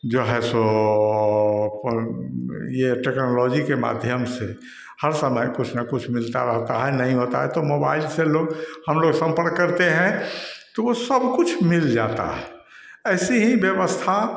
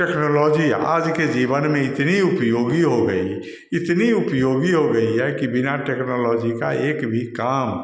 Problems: none marked